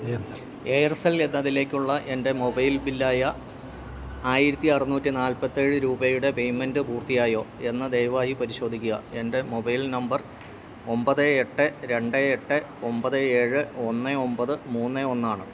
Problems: background conversations at intervals